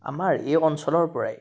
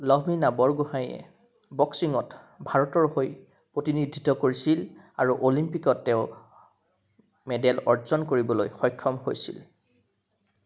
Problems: constant background noise